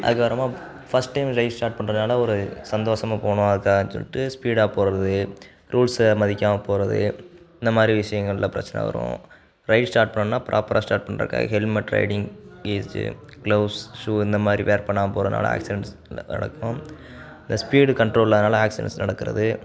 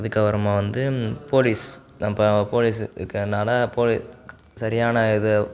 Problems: background sounds at intervals